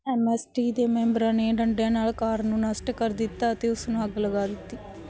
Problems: background sounds at intervals